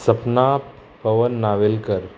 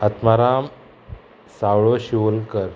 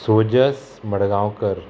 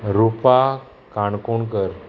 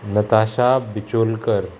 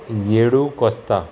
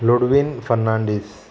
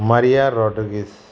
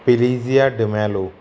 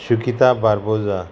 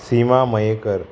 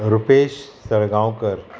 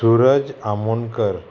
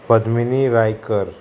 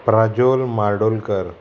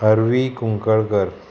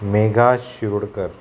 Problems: constant background noise